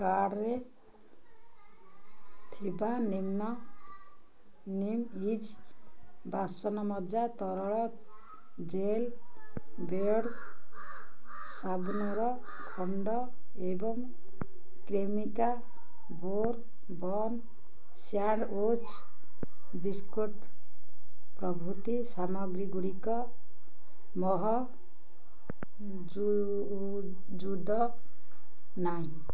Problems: low volume